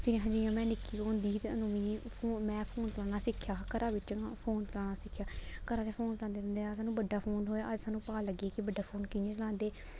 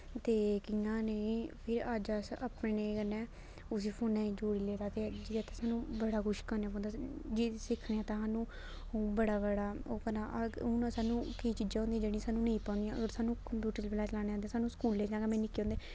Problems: constant background noise